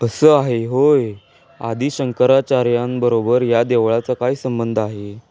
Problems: background sounds at intervals